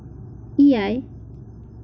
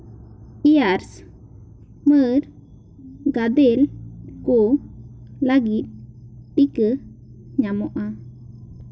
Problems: constant background noise, background conversations at intervals